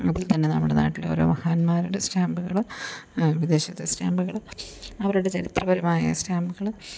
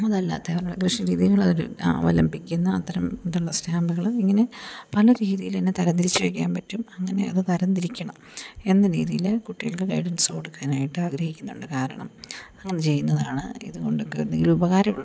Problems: none marked